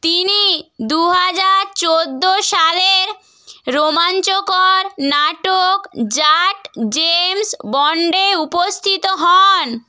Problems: none marked